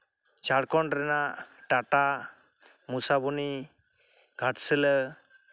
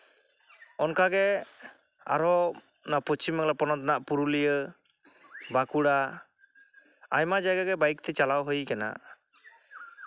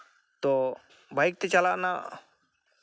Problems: none marked